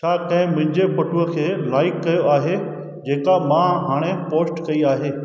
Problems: echo